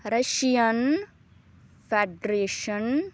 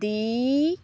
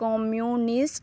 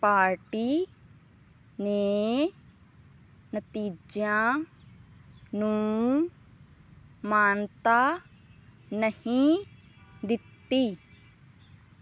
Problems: background sounds at intervals